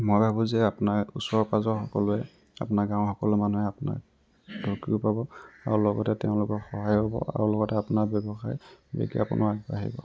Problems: background sounds at intervals